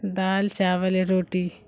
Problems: constant background noise